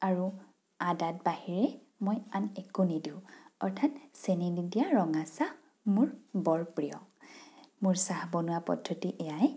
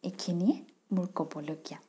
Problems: none marked